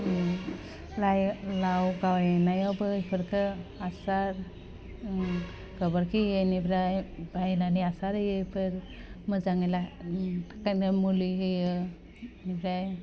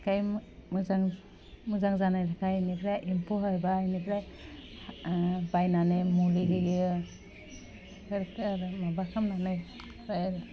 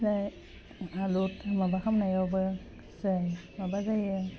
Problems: low volume